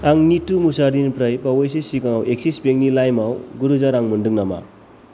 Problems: constant background noise